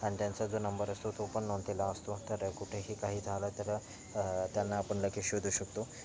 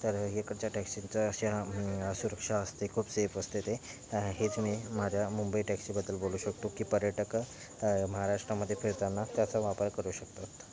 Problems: background sounds at intervals